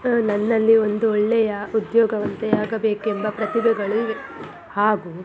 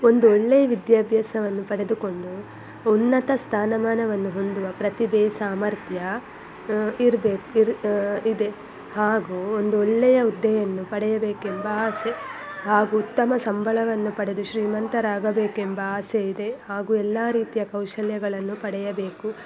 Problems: constant background noise